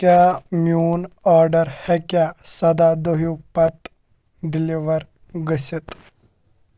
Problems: constant background noise